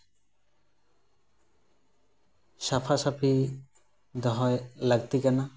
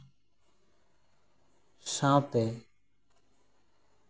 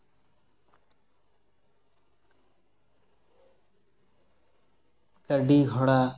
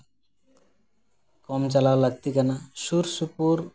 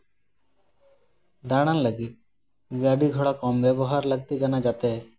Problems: background sounds at intervals